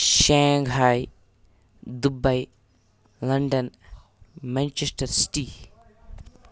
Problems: none marked